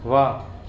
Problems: constant background noise